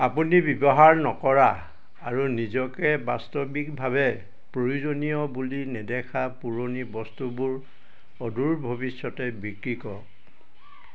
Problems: none marked